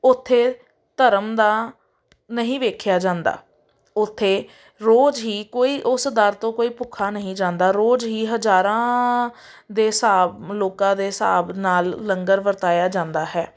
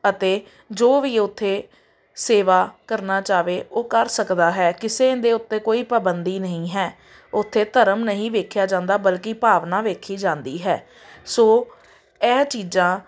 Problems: none marked